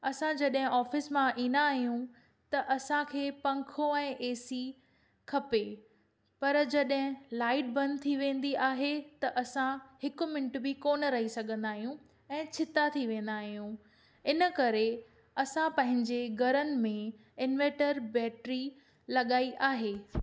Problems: none marked